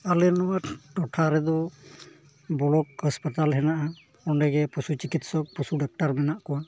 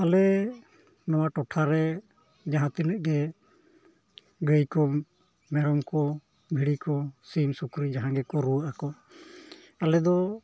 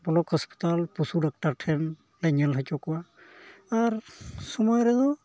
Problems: background sounds at intervals, low volume